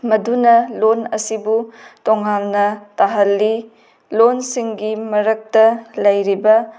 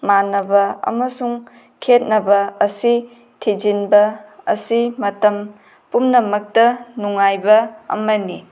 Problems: background sounds at intervals